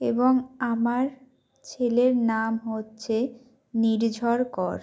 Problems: constant background noise